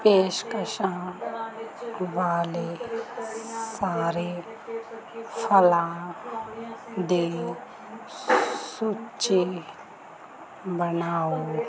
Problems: background sounds at intervals